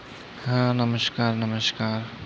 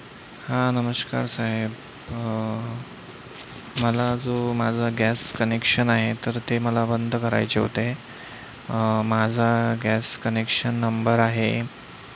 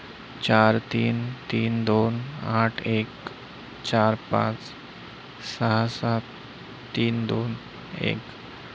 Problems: constant background noise